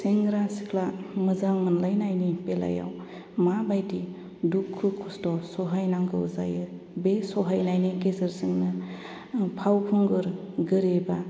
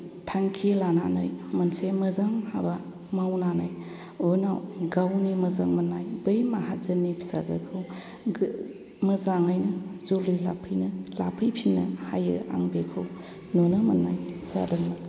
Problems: none marked